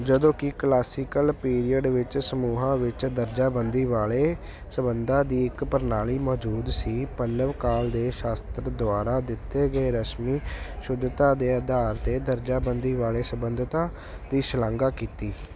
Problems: none marked